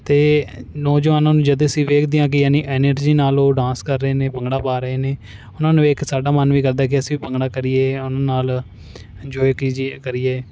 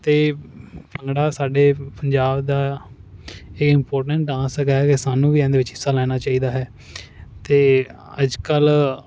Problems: none marked